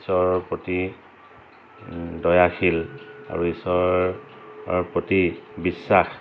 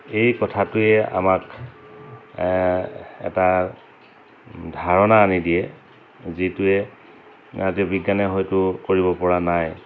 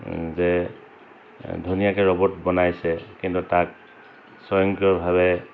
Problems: constant background noise, background conversations at intervals